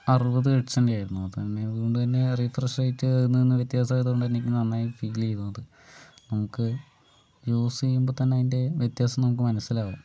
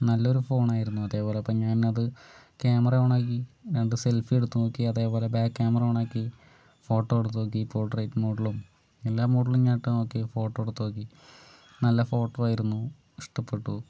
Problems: none marked